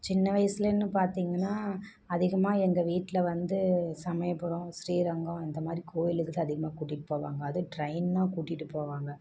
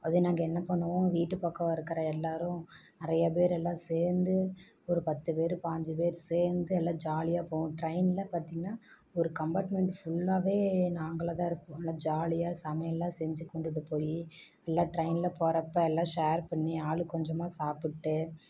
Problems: none marked